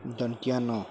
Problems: none marked